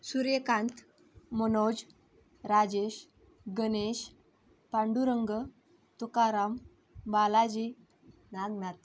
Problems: constant background noise, background conversations at intervals